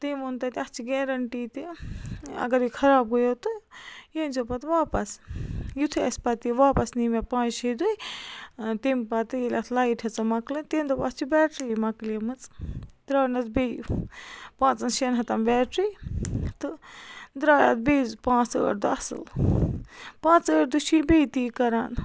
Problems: constant background noise